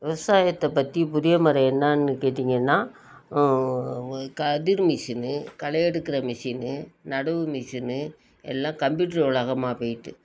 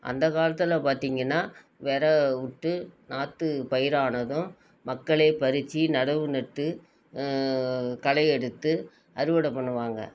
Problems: none marked